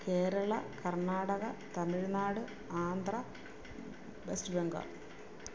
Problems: constant background noise